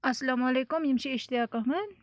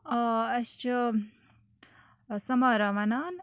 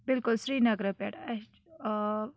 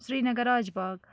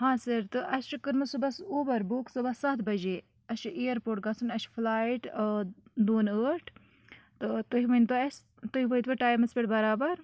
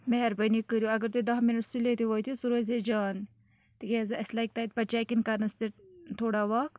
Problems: none marked